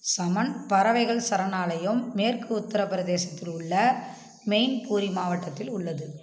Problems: constant background noise